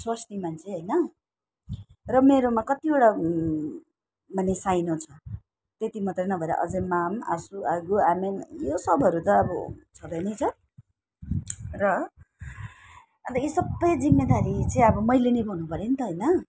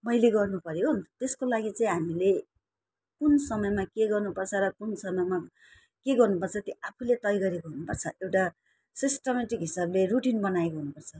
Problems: none marked